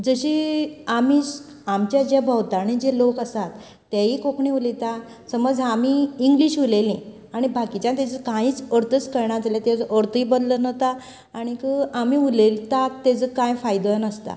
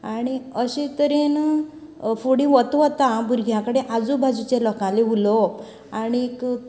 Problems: background sounds at intervals, background conversations at intervals